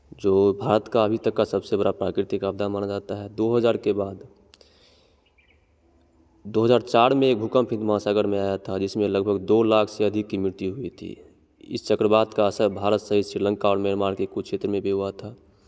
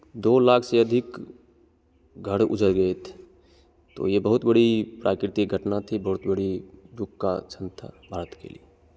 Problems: constant background noise